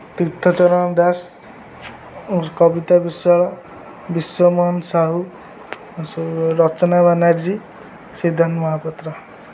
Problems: none marked